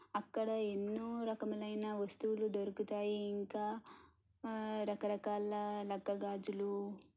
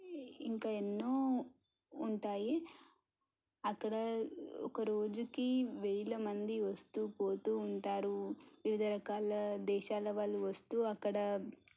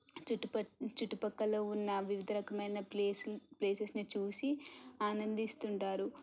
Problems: low volume